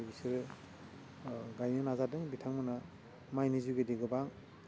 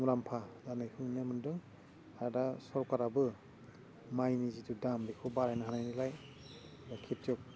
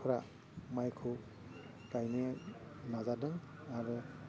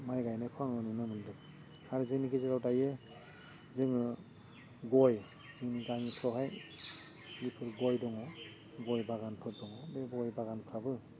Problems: constant background noise